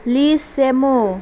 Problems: constant background noise